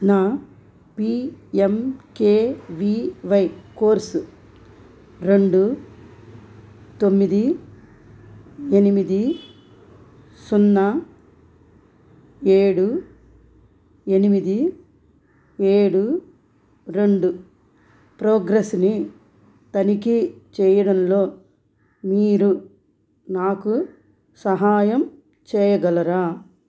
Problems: none marked